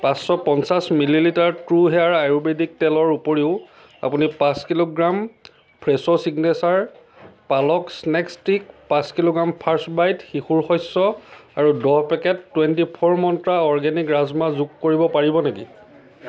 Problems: background conversations at intervals